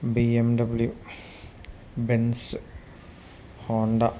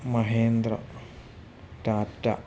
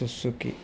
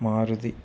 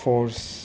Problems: low volume